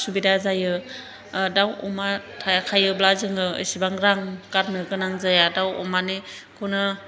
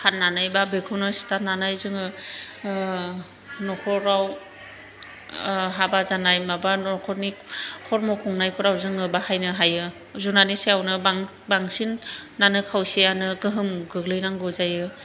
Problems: none marked